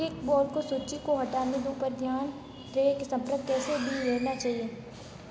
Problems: constant background noise, background conversations at intervals